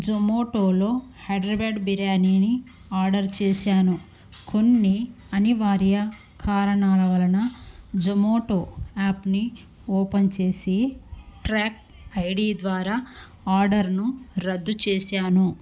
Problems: background sounds at intervals